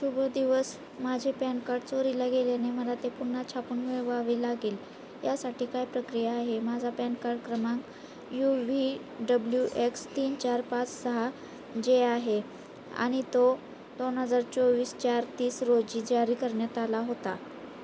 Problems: constant background noise